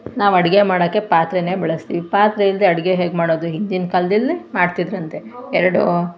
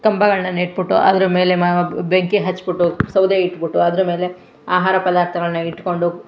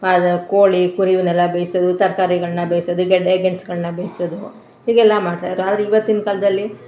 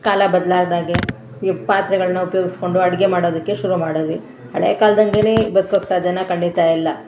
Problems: none marked